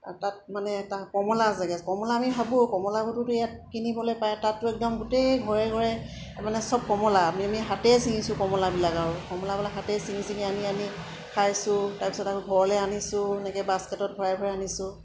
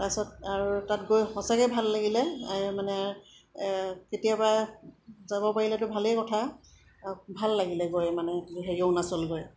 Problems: background sounds at intervals, background conversations at intervals